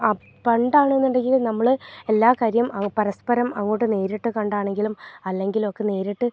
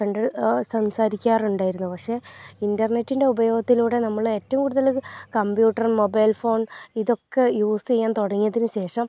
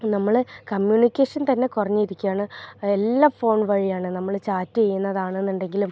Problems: low volume